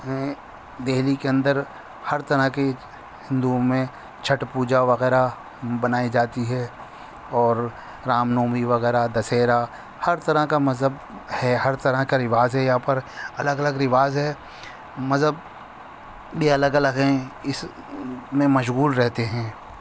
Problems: constant background noise